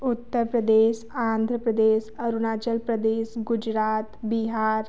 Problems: none marked